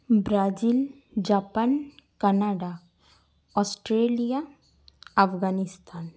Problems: background sounds at intervals, echo